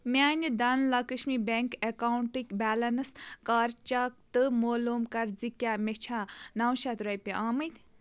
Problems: background sounds at intervals